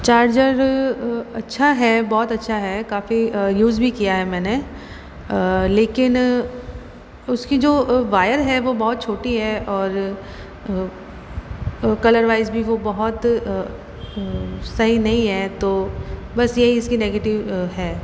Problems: constant background noise